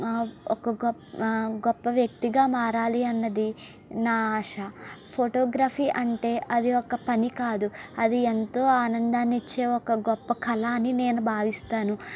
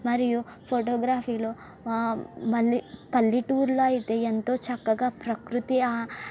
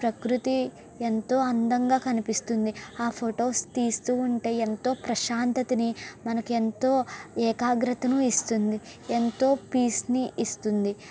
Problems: constant background noise